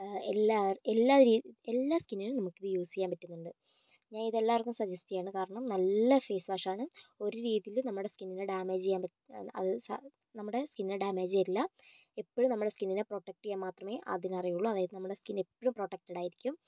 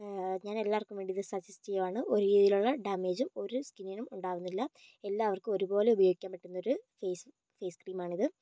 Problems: low volume